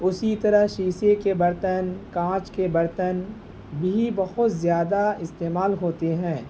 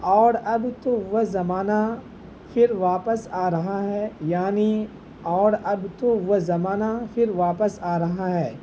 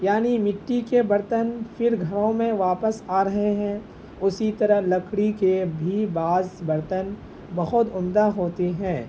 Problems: constant background noise